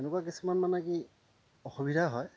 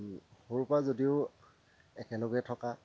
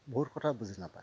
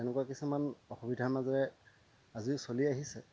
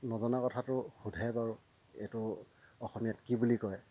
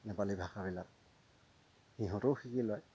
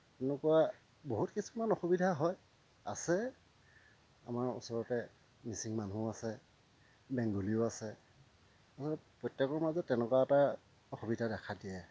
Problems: constant background noise, low volume